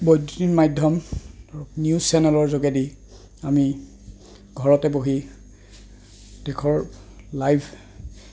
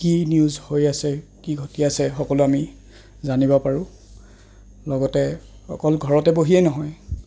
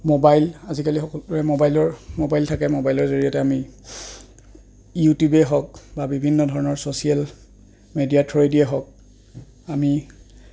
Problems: constant background noise